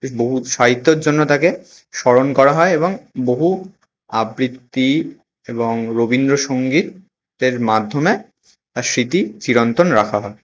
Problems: none marked